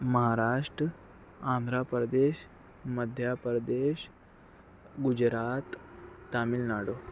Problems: constant background noise